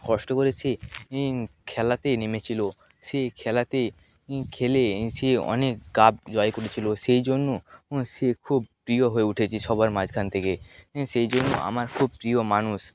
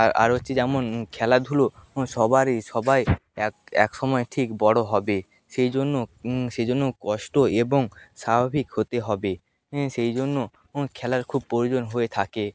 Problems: background sounds at intervals